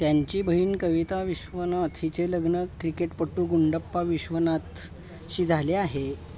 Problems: background sounds at intervals